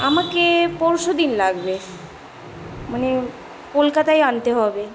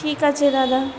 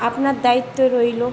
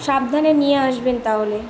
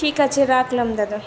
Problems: constant background noise